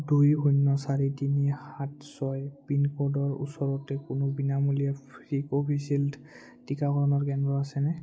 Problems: none marked